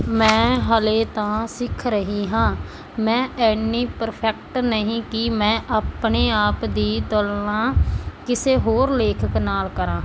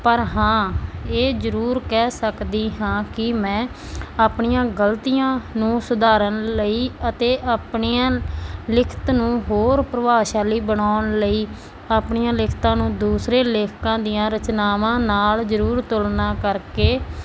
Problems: constant background noise